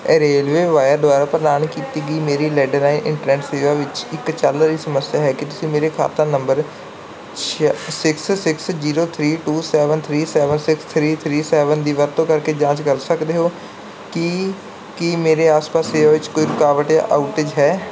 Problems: background sounds at intervals